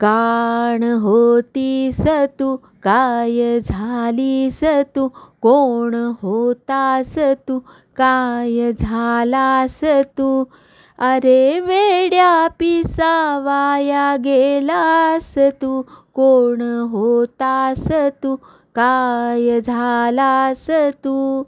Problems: none marked